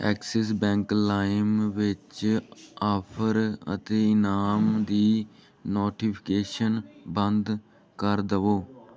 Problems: continuous background conversations